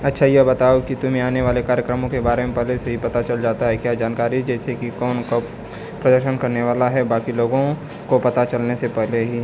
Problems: none marked